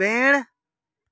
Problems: constant background noise